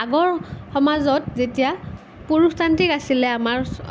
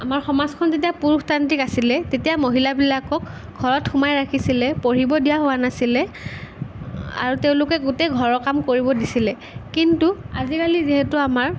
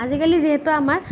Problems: none marked